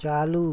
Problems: constant background noise